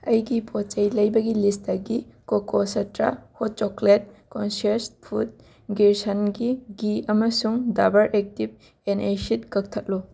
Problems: background sounds at intervals